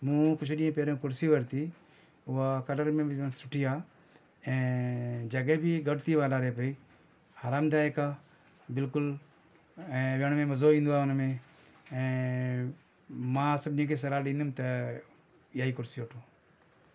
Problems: none marked